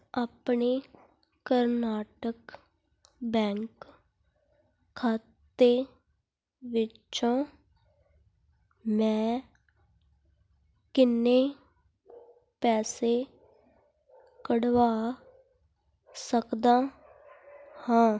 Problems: none marked